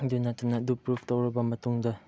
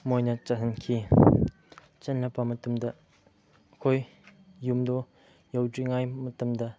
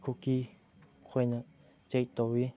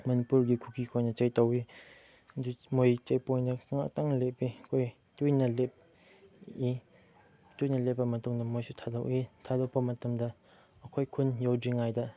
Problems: background sounds at intervals, background conversations at intervals